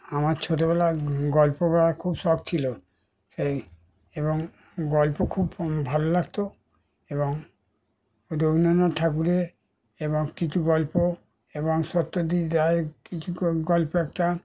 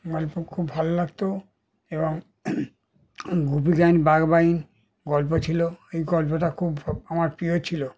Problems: background sounds at intervals